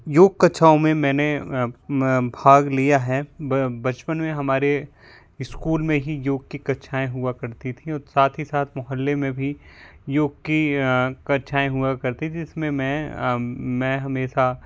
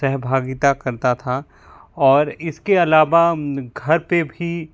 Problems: none marked